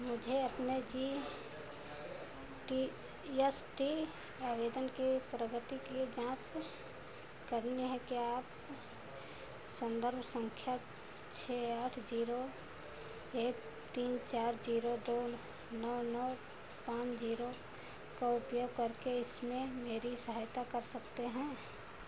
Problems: constant background noise